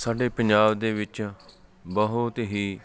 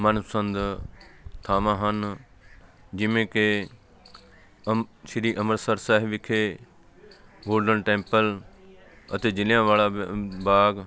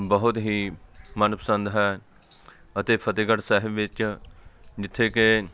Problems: background sounds at intervals